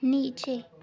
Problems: background sounds at intervals, background conversations at intervals